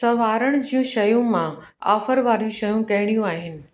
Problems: echo